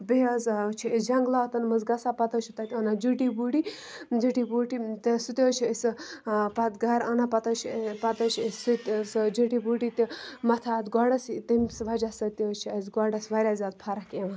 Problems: none marked